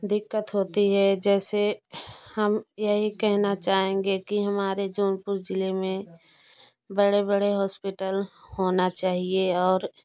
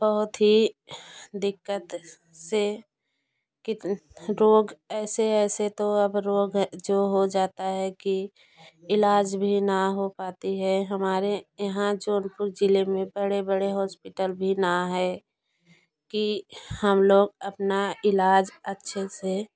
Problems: constant background noise